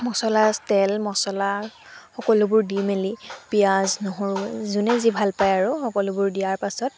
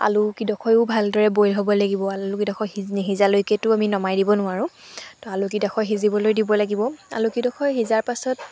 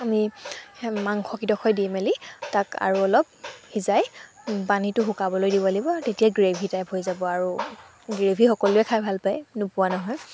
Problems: none marked